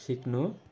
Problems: constant background noise